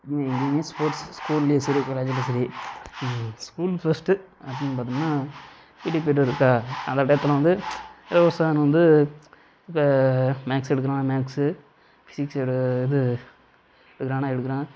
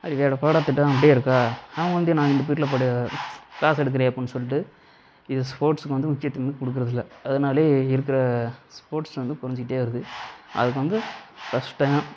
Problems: constant background noise